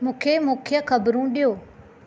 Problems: none marked